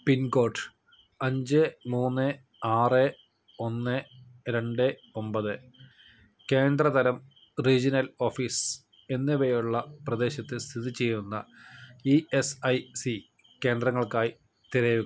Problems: none marked